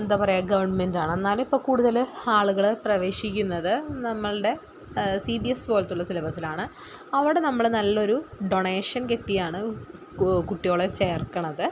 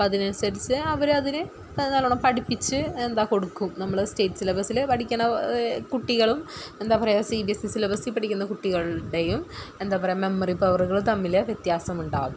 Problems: none marked